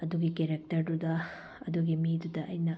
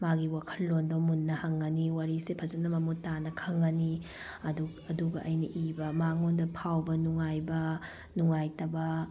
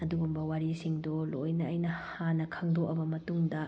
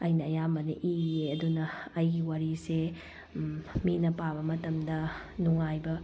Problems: none marked